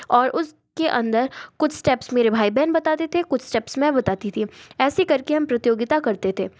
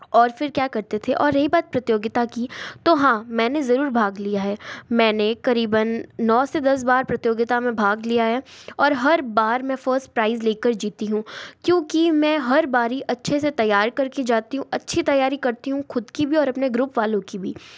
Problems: none marked